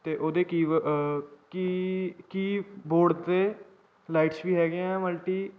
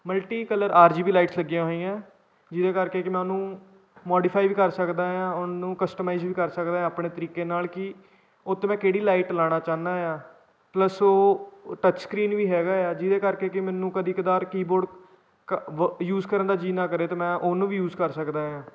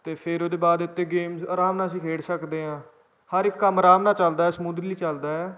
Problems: background sounds at intervals